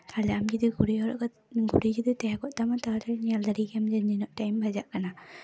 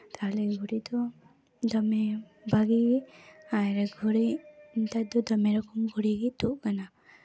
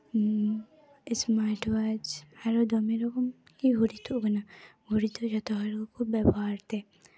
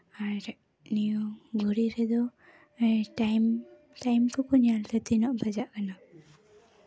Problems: background sounds at intervals, background conversations at intervals